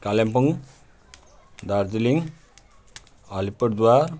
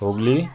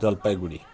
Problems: continuous background conversations